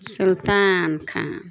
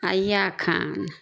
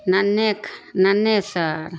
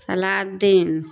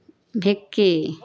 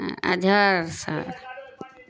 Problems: constant background noise